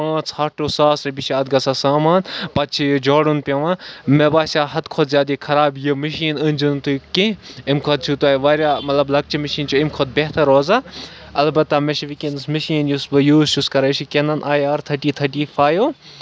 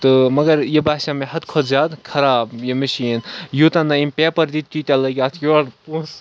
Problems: none marked